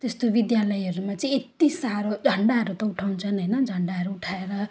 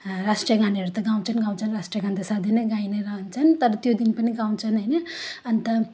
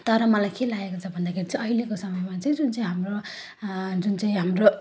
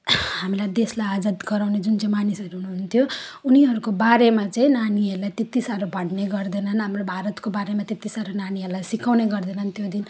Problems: background sounds at intervals